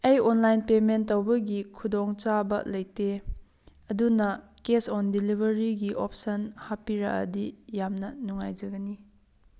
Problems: background sounds at intervals